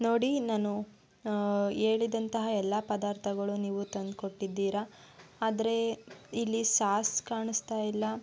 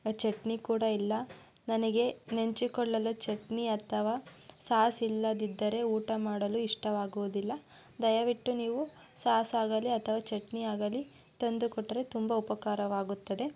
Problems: background sounds at intervals